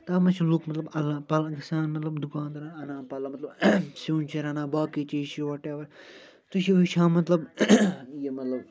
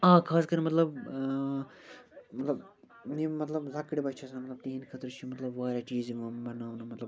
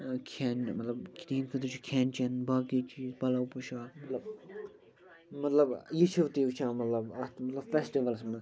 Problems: constant background noise, continuous background conversations